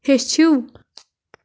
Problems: background sounds at intervals